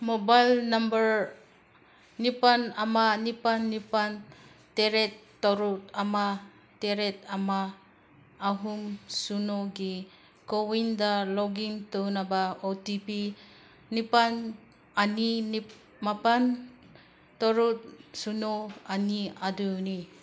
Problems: none marked